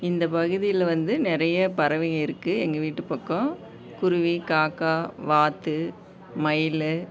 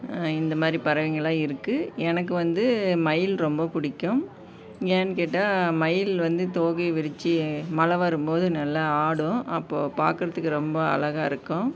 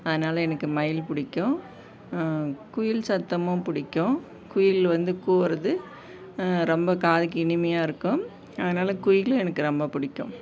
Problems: none marked